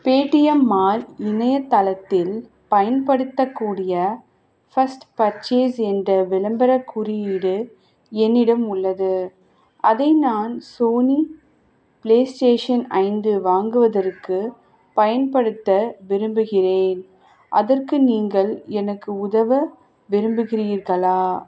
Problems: background sounds at intervals